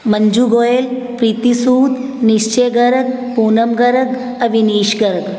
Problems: constant background noise